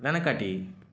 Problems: constant background noise